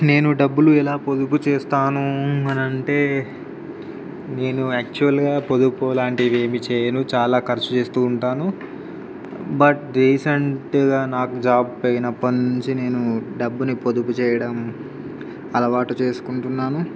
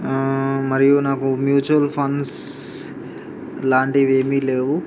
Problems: background sounds at intervals, background conversations at intervals